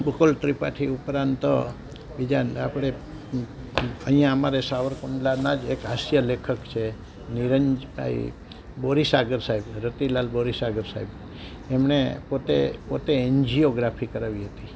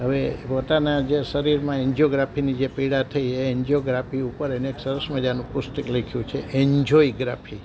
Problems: none marked